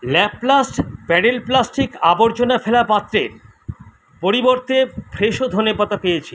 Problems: none marked